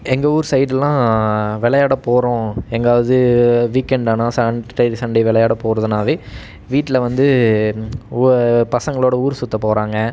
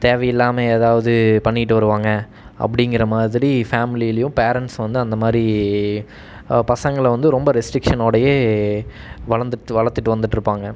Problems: none marked